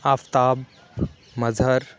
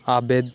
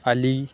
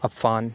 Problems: none marked